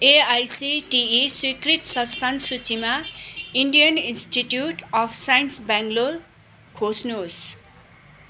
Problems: constant background noise